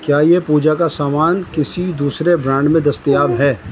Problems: constant background noise